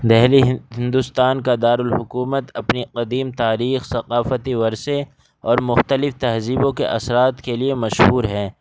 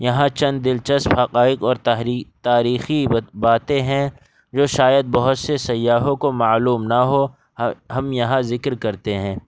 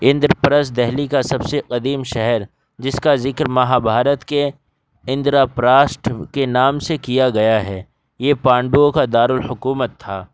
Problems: background sounds at intervals